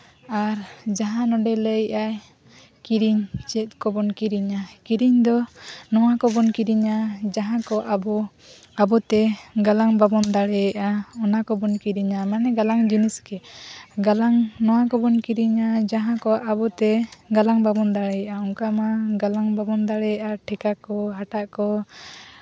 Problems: background sounds at intervals, continuous background conversations